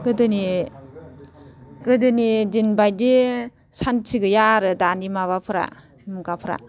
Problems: constant background noise, background conversations at intervals